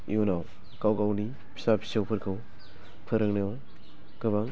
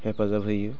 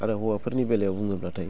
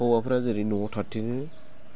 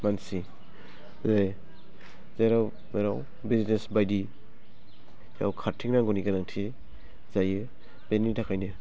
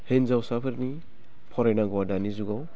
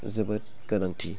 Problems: low volume